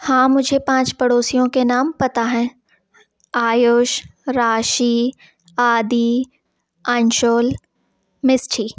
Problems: constant background noise